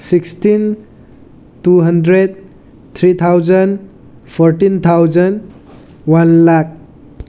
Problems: background sounds at intervals